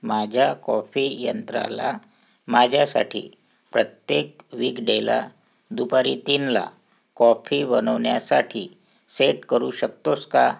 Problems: background sounds at intervals